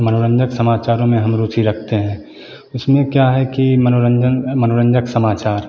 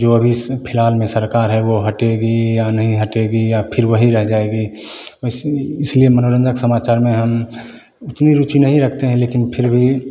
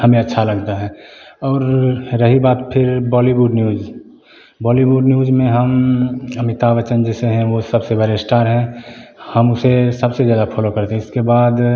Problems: constant background noise